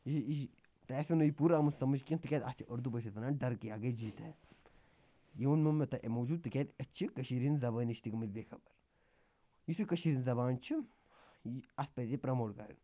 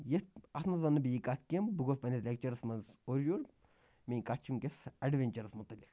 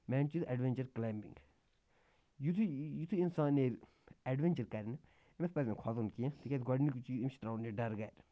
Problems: constant background noise